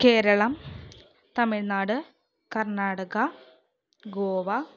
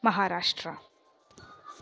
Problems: low volume